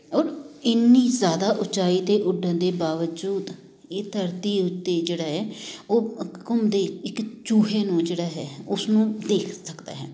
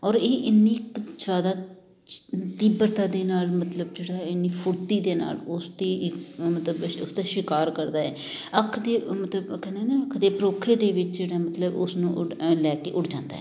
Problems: constant background noise, background conversations at intervals